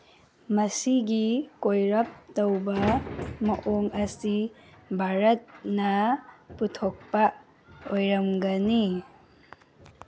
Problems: background sounds at intervals